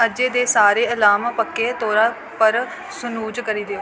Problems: constant background noise